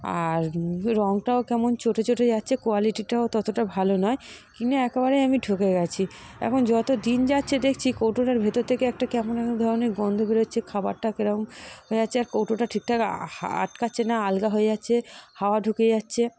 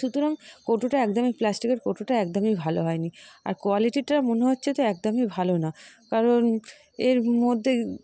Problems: none marked